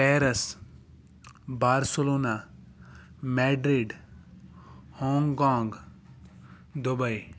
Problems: background sounds at intervals